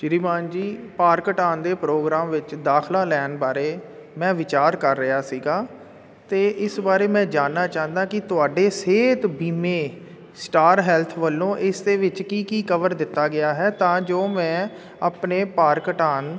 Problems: none marked